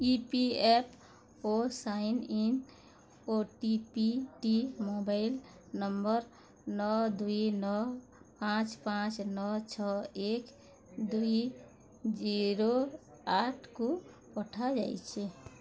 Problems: constant background noise